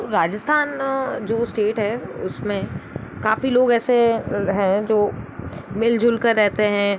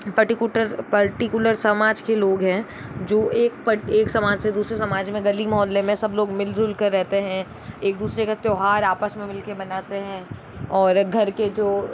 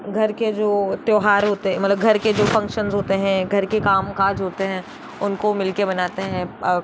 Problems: constant background noise